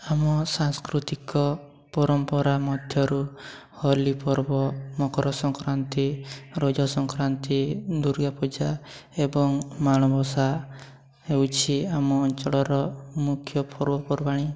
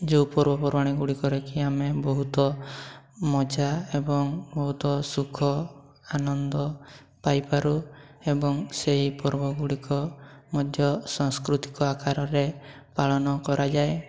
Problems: none marked